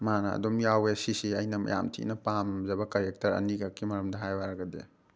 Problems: none marked